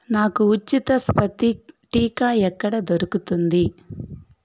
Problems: none marked